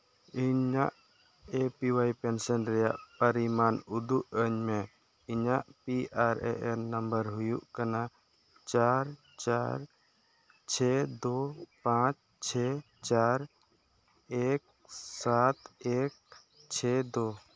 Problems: background sounds at intervals